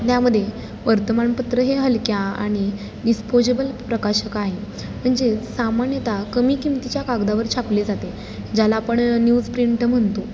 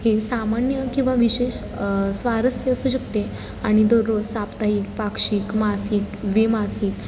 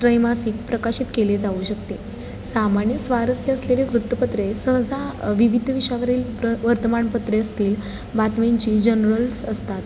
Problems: constant background noise